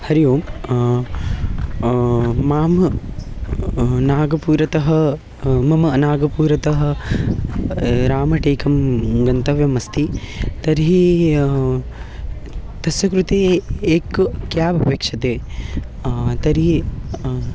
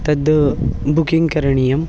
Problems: constant background noise, continuous background conversations